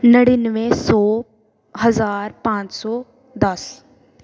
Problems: background sounds at intervals